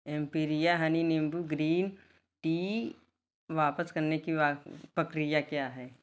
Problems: constant background noise